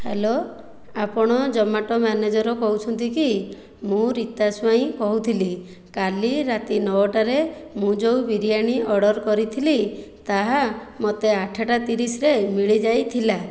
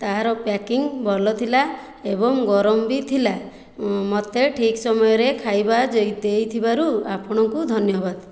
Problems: none marked